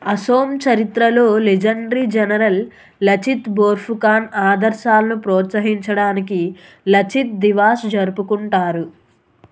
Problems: constant background noise